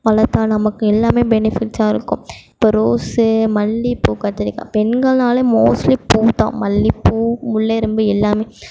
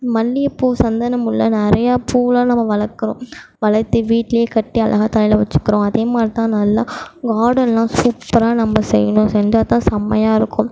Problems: background sounds at intervals